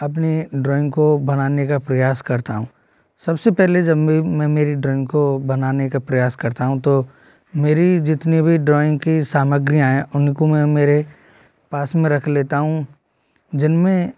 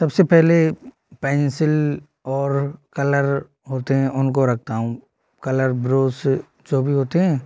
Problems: none marked